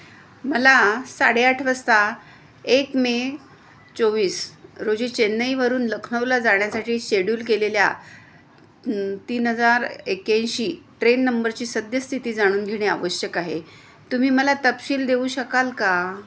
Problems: constant background noise